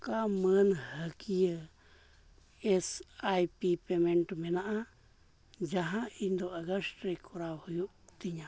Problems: low volume